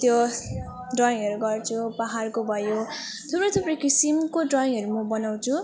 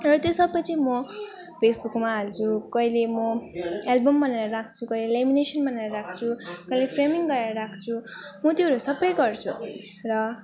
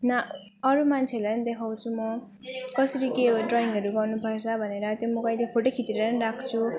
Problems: none marked